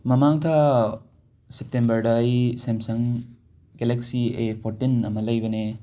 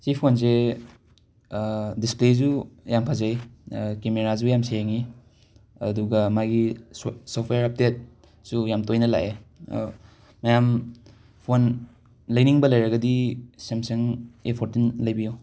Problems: background sounds at intervals